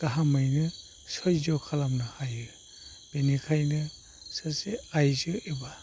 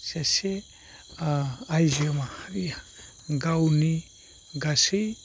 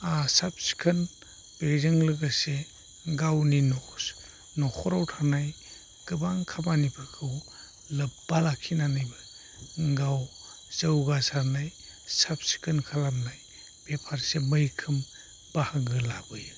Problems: low volume